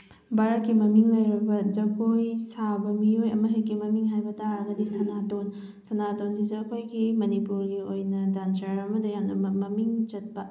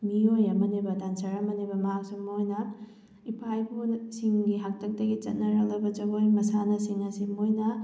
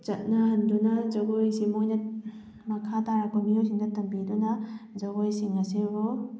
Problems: background sounds at intervals